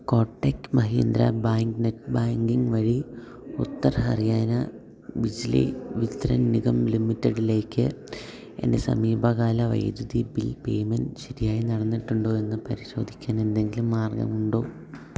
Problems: low volume